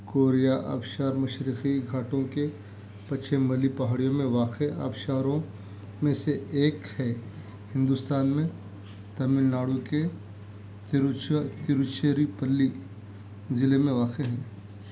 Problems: constant background noise